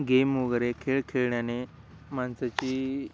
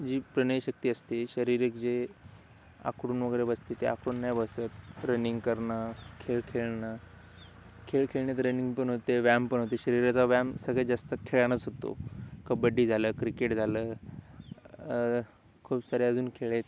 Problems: none marked